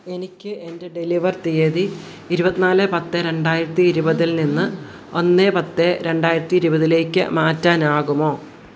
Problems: background sounds at intervals